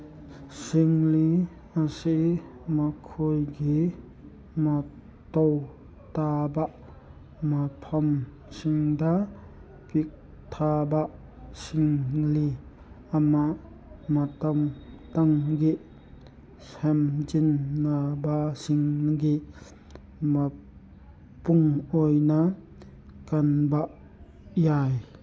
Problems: none marked